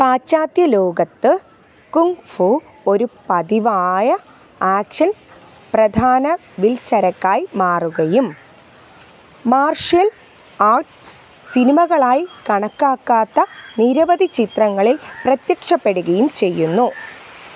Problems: background sounds at intervals